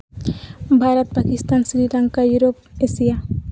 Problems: constant background noise